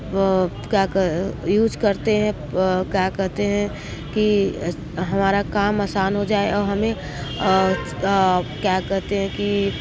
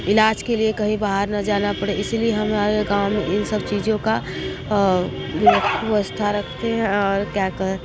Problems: constant background noise, continuous background conversations